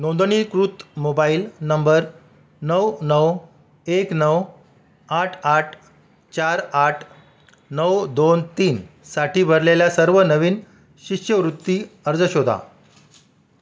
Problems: constant background noise